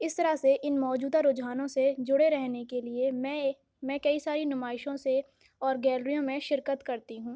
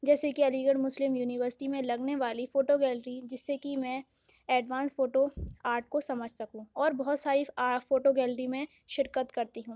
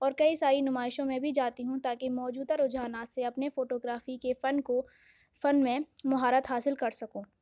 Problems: background sounds at intervals